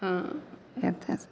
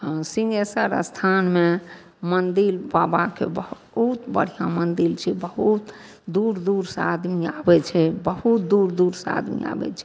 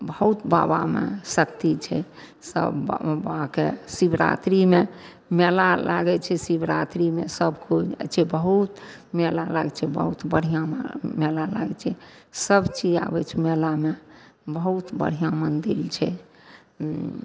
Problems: low volume